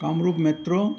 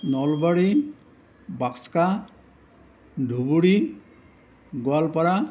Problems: none marked